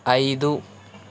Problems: none marked